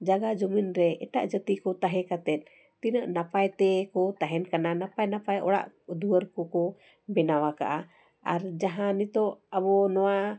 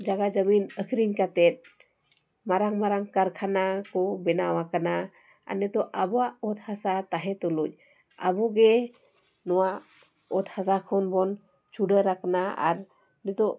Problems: constant background noise